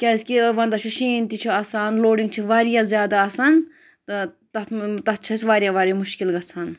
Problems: none marked